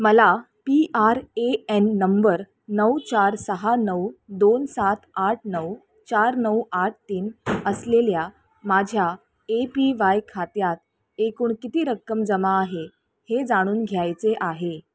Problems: none marked